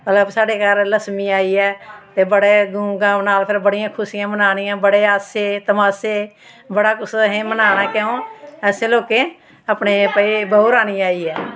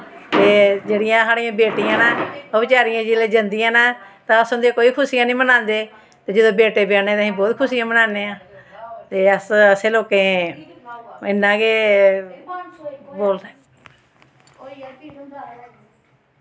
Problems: constant background noise